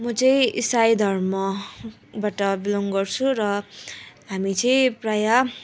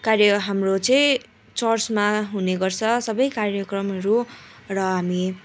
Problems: continuous background conversations